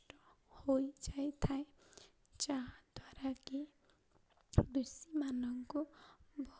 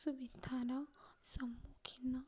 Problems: low volume